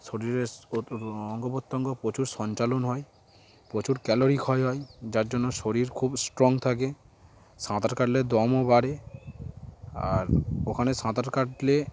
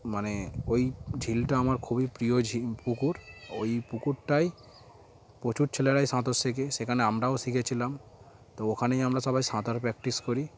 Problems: constant background noise, background conversations at intervals